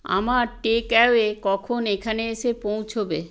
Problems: constant background noise